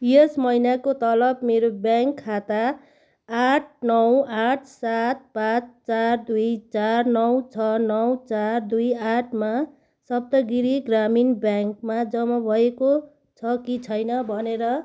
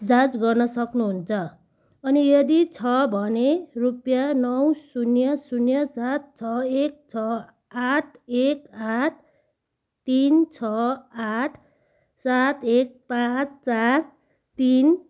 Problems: background sounds at intervals